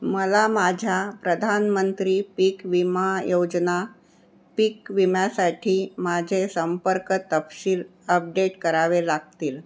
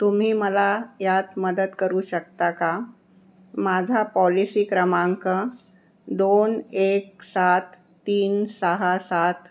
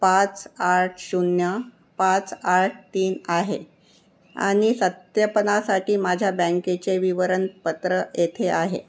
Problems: none marked